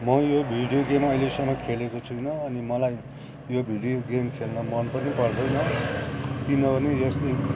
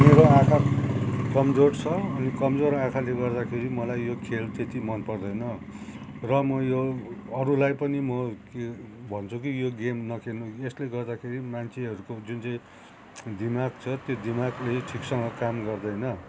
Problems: constant background noise, continuous background conversations